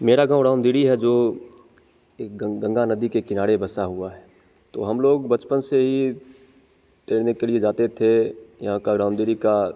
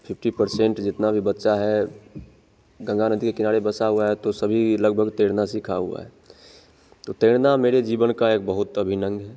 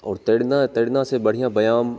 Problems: constant background noise